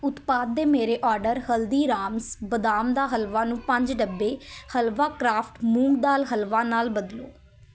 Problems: constant background noise, continuous background conversations